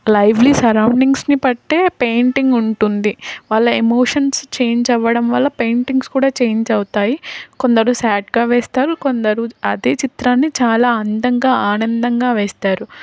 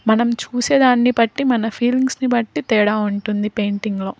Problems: constant background noise